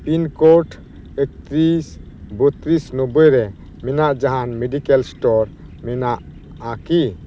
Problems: constant background noise